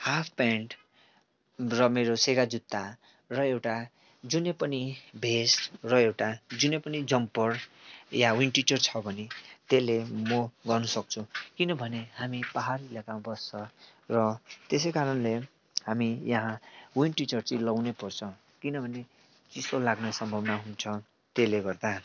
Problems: none marked